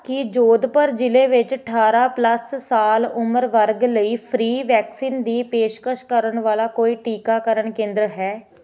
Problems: constant background noise